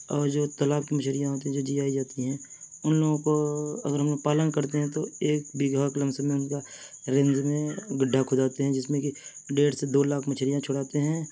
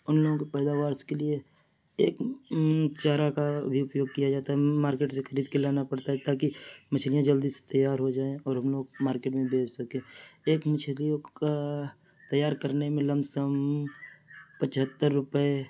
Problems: background sounds at intervals